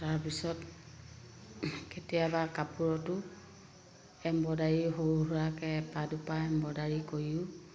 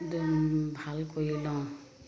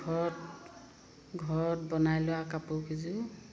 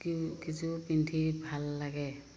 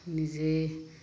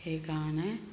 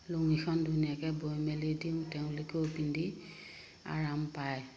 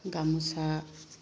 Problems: constant background noise